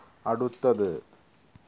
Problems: constant background noise, low volume